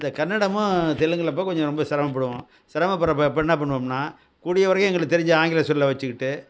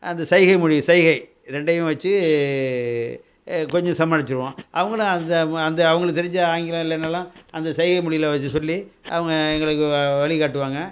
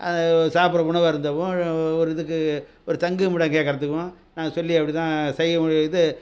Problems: none marked